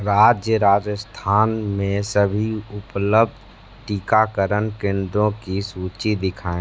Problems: constant background noise